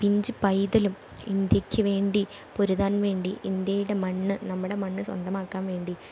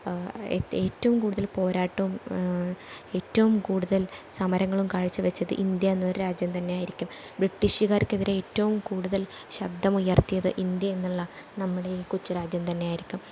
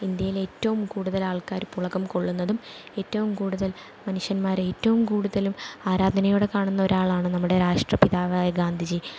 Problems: none marked